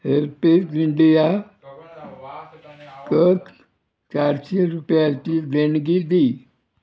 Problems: background conversations at intervals